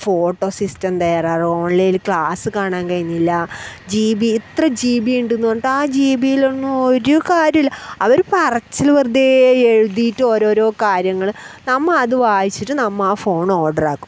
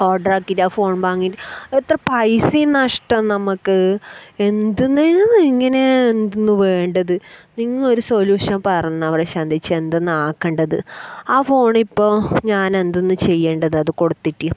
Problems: background sounds at intervals